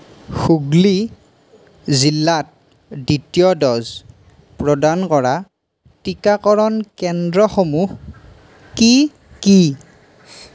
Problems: constant background noise